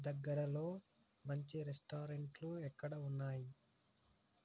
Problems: low volume